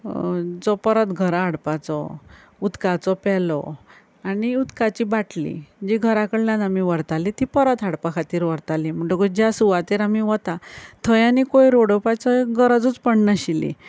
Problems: none marked